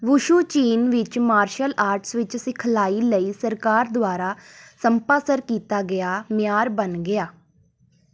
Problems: background sounds at intervals